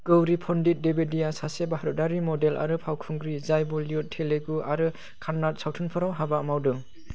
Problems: constant background noise